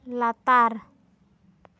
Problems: none marked